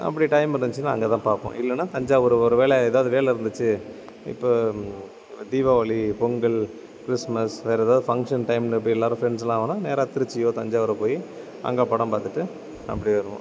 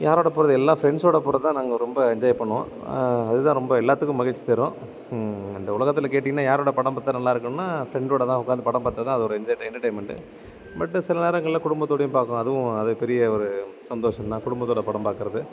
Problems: none marked